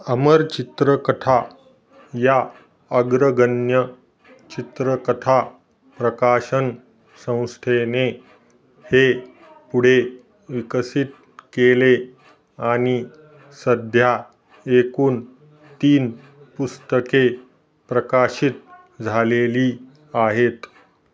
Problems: none marked